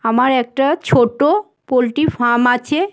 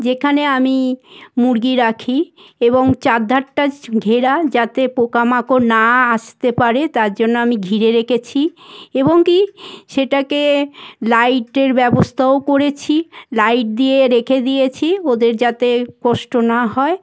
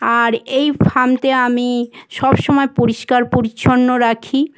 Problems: constant background noise